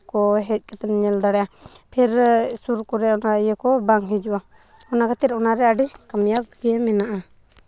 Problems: background sounds at intervals